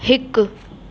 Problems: constant background noise